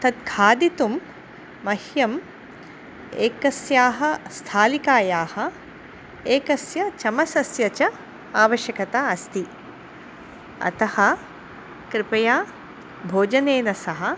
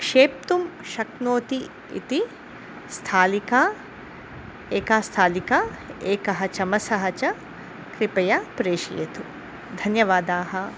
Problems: constant background noise